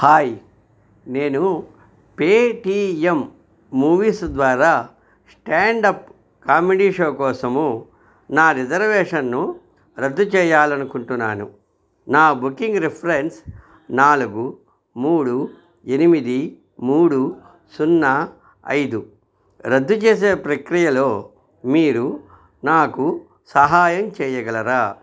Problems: none marked